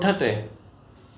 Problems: constant background noise